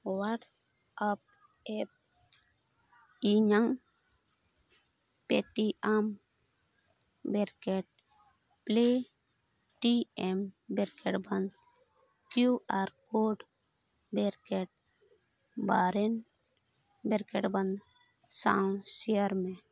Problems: background sounds at intervals